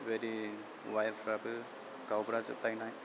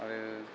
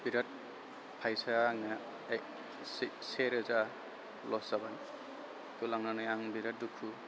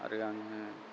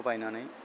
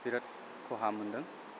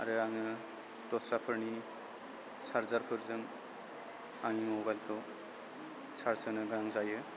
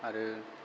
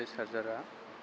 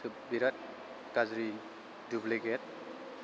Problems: constant background noise